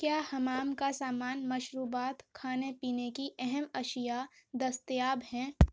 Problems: none marked